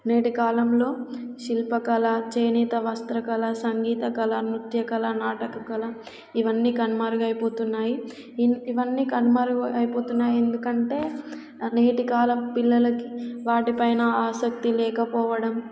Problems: background sounds at intervals